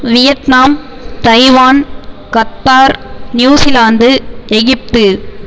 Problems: constant background noise